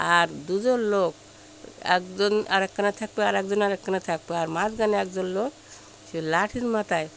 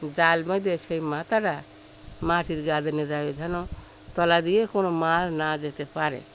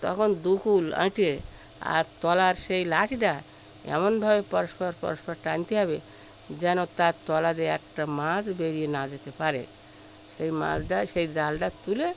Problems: constant background noise, background conversations at intervals